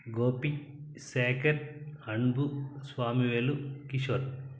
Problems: none marked